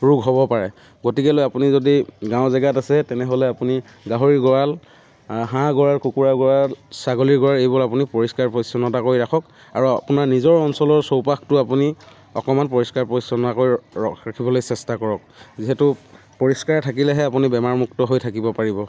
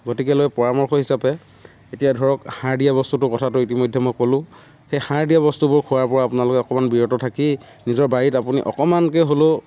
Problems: none marked